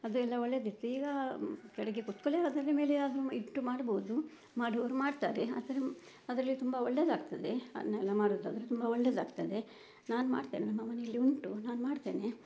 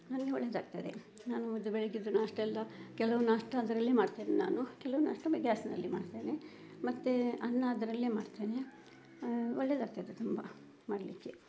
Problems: none marked